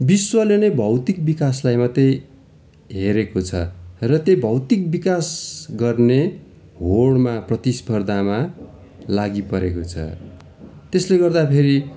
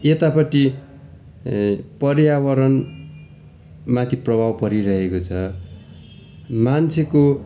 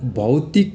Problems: continuous background conversations